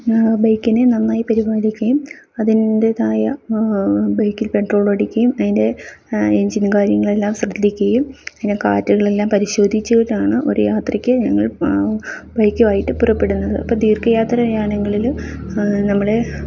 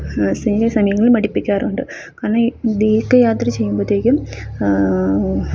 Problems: none marked